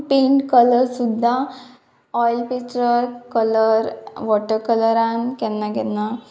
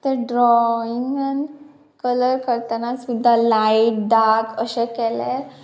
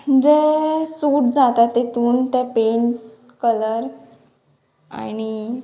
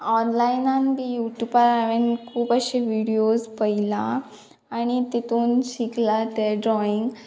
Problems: none marked